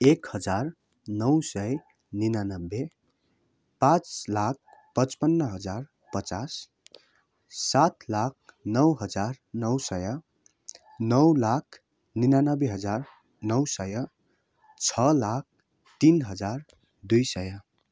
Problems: none marked